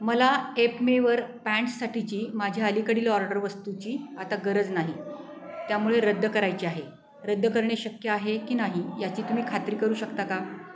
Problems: constant background noise, background conversations at intervals